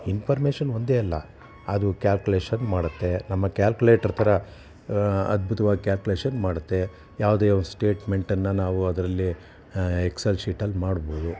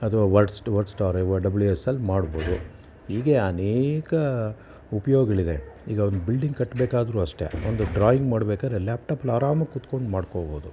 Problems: none marked